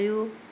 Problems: none marked